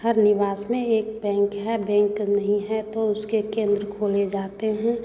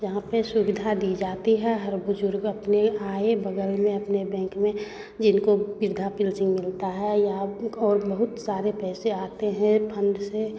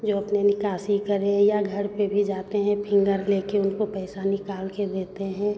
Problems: constant background noise, background conversations at intervals